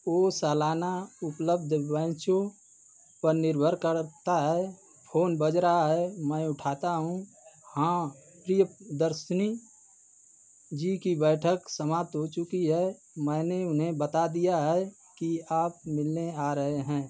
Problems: none marked